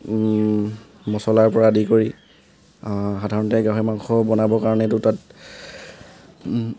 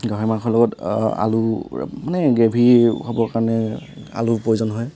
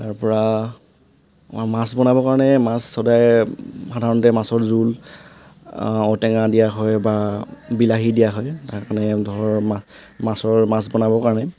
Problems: constant background noise